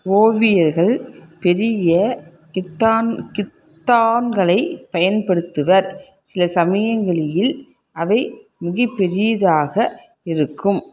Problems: none marked